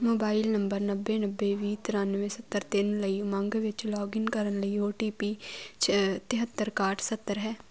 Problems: constant background noise